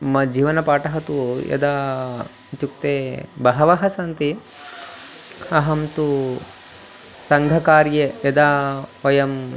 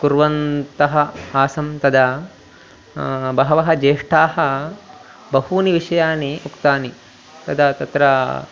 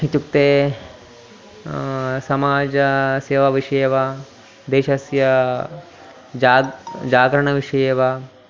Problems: background sounds at intervals